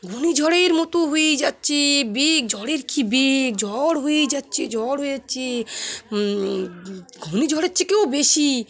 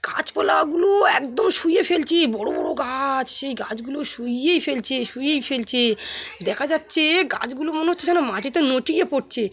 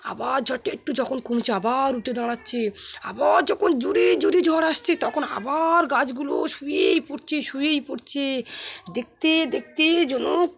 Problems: constant background noise, continuous background conversations